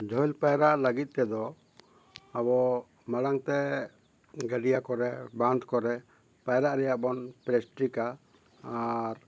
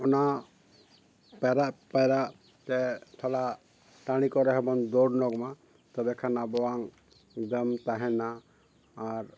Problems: background sounds at intervals